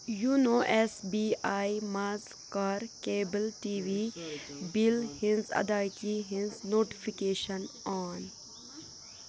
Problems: constant background noise, background conversations at intervals